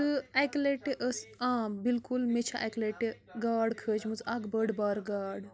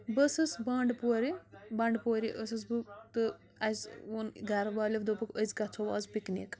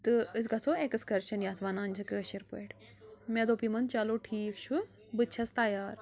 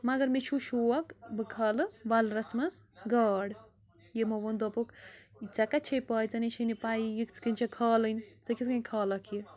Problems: constant background noise